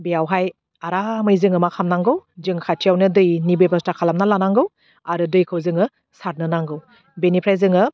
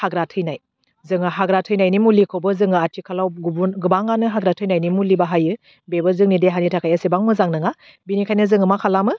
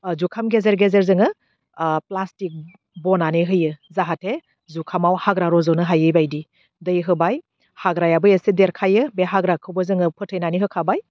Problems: none marked